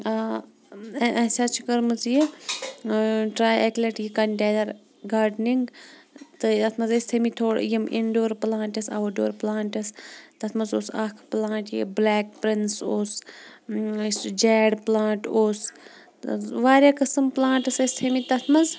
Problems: background sounds at intervals